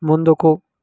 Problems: none marked